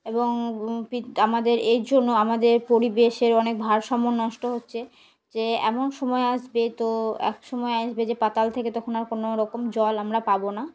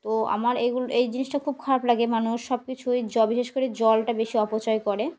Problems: background sounds at intervals